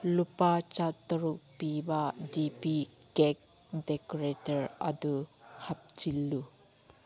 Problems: background sounds at intervals